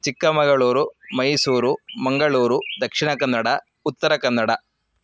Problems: background sounds at intervals